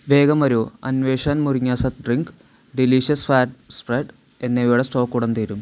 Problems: none marked